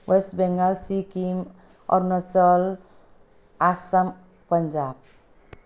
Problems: none marked